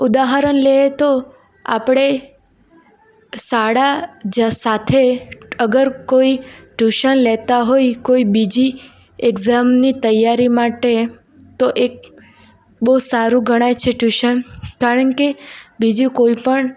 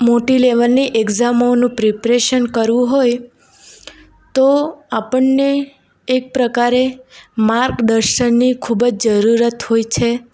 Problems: none marked